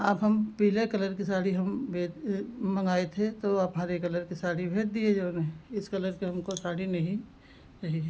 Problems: background sounds at intervals